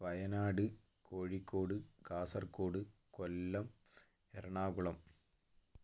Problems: low volume